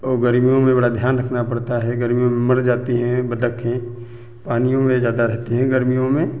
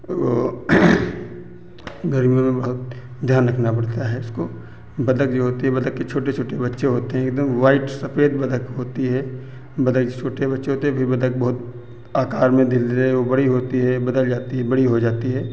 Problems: none marked